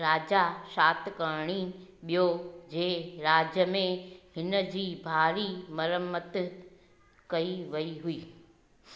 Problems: constant background noise, echo